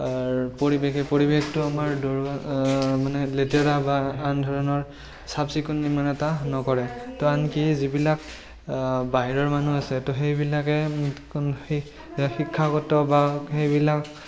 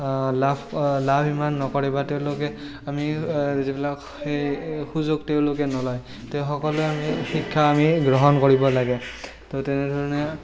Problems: constant background noise, continuous background conversations